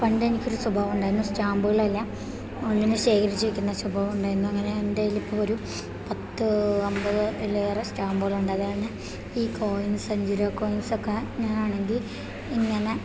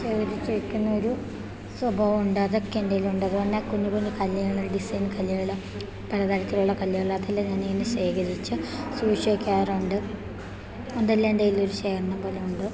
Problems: none marked